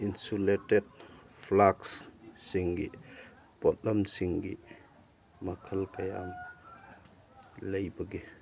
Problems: background sounds at intervals